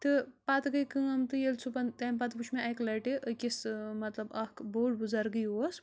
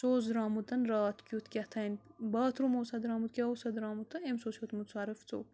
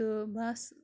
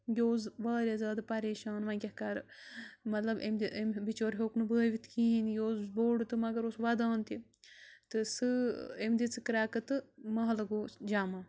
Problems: low volume